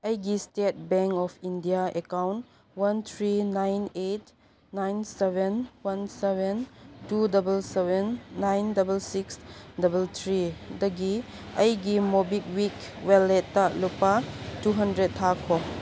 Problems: background sounds at intervals